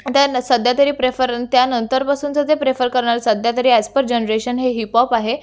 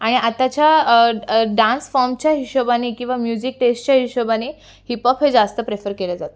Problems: none marked